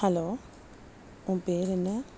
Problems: background sounds at intervals, low volume